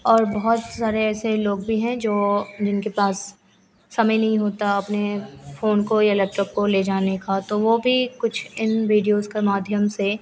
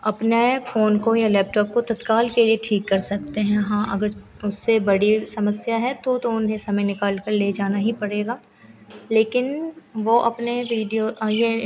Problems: constant background noise